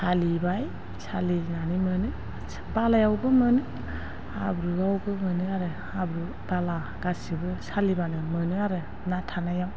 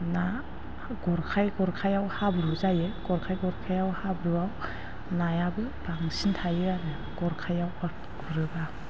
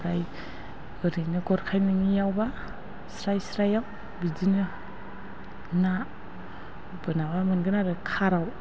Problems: low volume